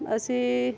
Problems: background conversations at intervals